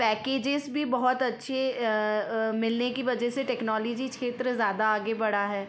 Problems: constant background noise, background conversations at intervals